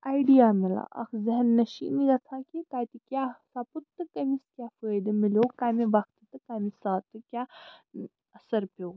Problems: background sounds at intervals